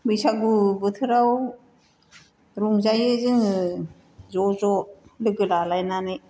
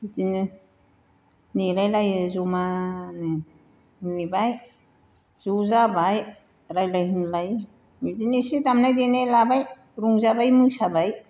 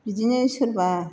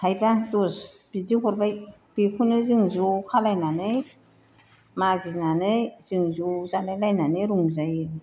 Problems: constant background noise